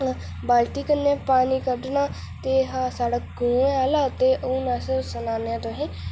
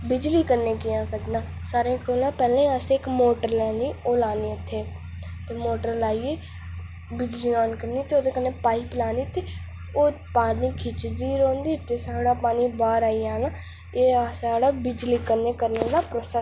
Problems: constant background noise